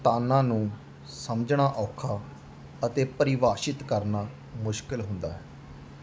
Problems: constant background noise